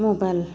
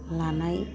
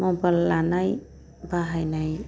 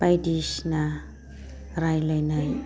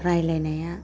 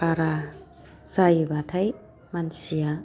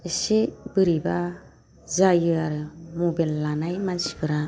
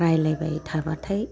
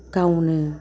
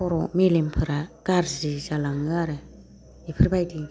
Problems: low volume